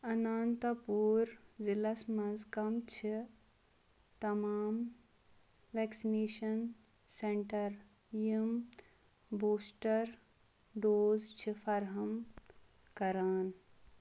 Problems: background sounds at intervals